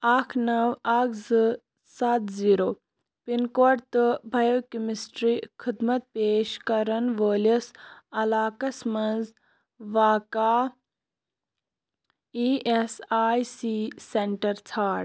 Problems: constant background noise